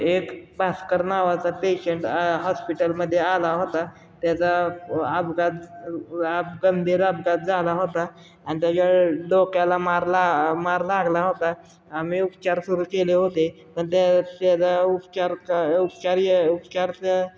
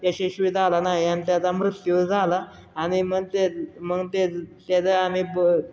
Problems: none marked